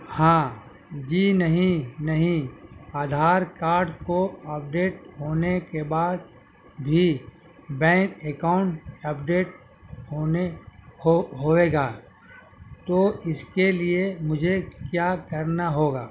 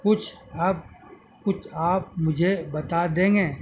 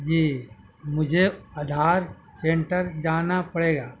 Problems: constant background noise